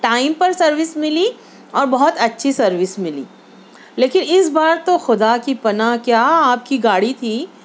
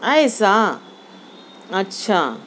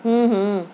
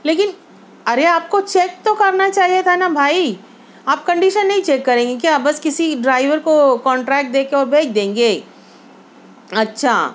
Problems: constant background noise